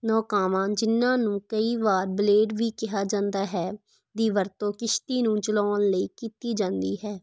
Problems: none marked